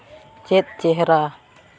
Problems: none marked